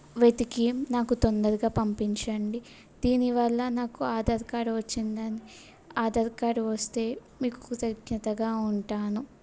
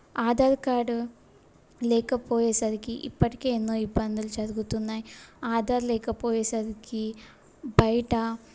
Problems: background sounds at intervals